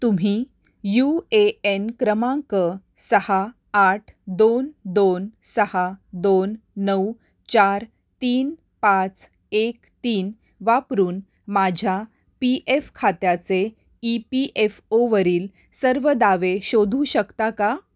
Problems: none marked